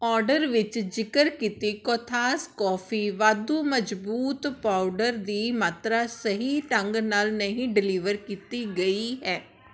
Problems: background sounds at intervals